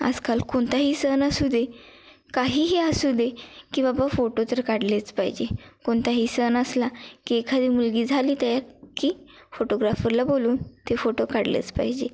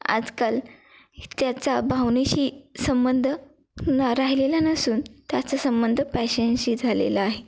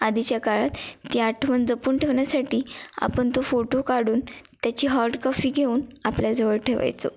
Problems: none marked